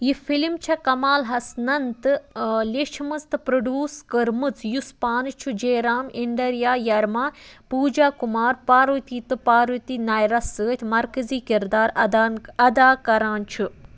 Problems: none marked